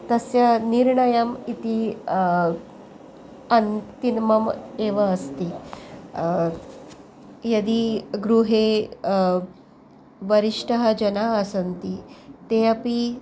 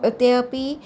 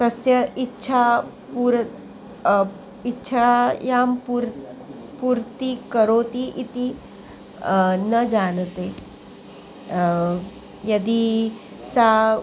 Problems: none marked